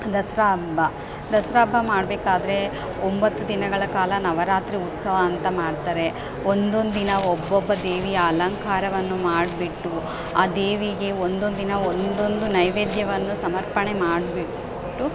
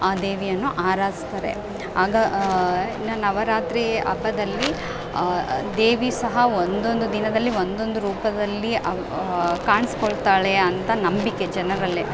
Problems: background sounds at intervals